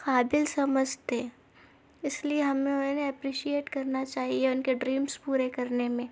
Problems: background sounds at intervals